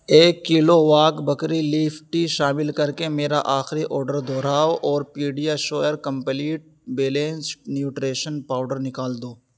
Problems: none marked